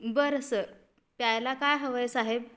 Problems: constant background noise